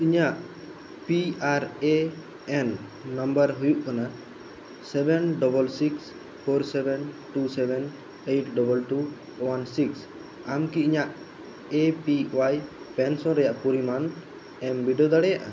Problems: constant background noise